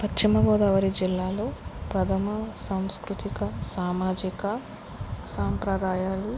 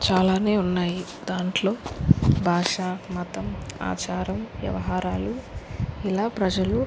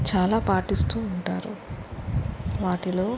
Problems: constant background noise